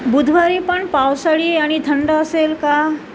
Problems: constant background noise